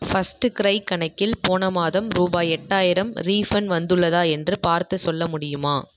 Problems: echo